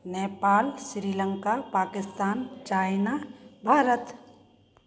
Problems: constant background noise